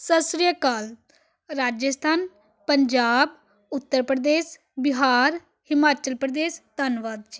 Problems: none marked